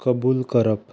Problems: background sounds at intervals